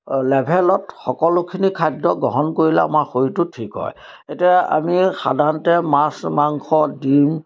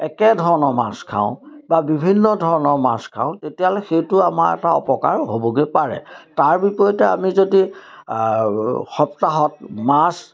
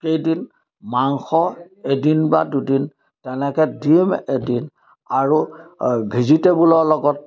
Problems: none marked